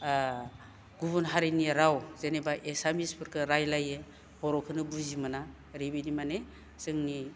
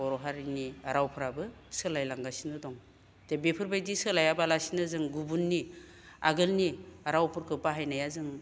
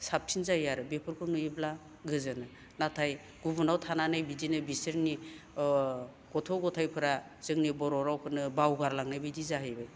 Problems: none marked